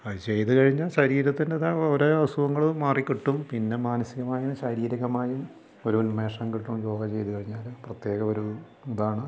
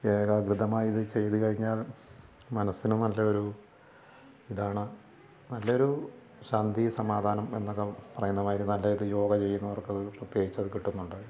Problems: low volume